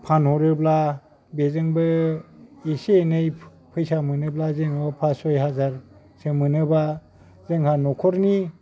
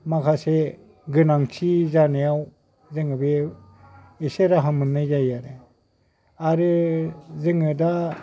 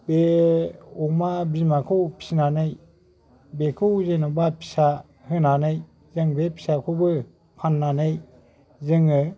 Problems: background sounds at intervals